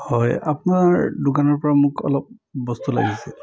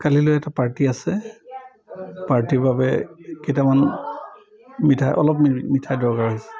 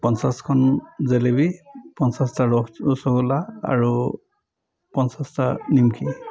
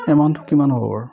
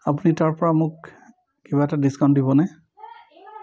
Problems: continuous background conversations